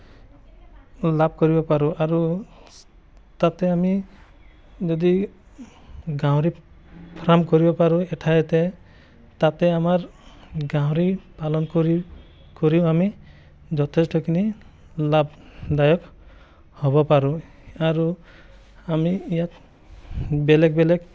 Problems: background sounds at intervals, background conversations at intervals